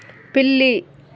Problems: background sounds at intervals